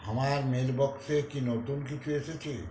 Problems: constant background noise